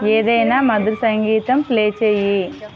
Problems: background conversations at intervals